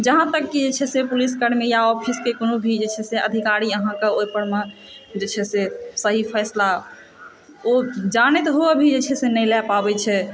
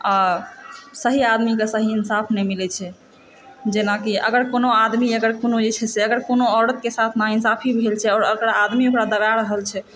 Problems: constant background noise